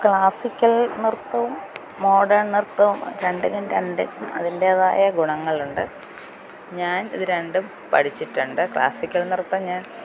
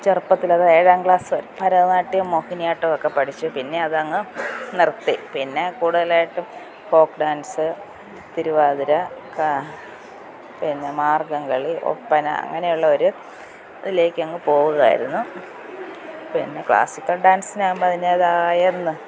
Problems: none marked